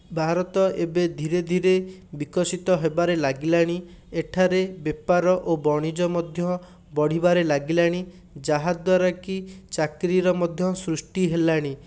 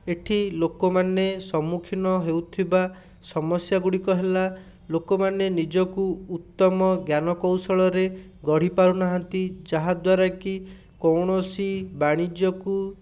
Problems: none marked